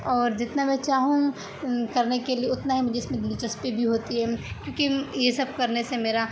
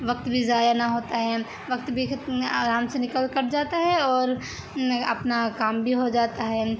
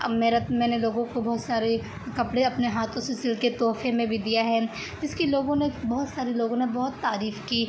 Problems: constant background noise